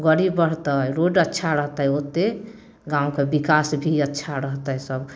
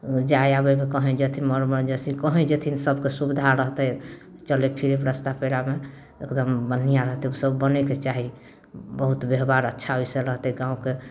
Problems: none marked